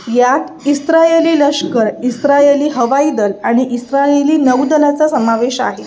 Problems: constant background noise